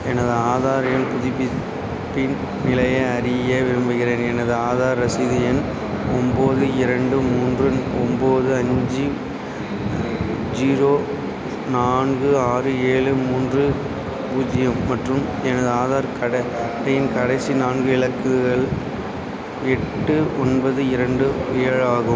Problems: constant background noise